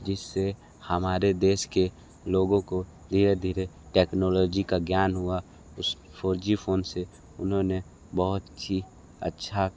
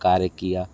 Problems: background sounds at intervals